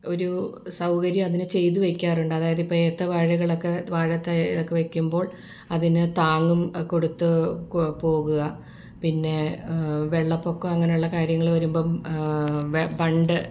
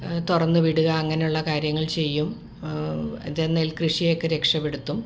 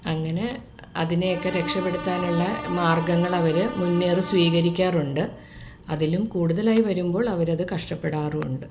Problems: background sounds at intervals